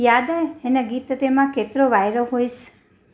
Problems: none marked